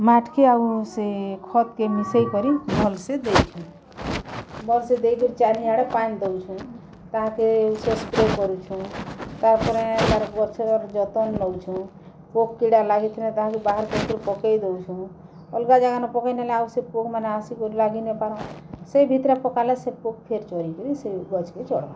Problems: background sounds at intervals